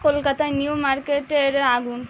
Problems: constant background noise